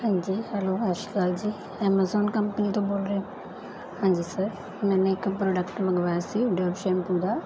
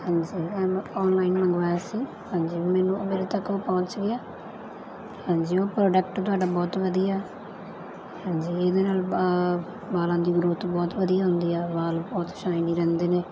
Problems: continuous background conversations